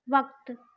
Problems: none marked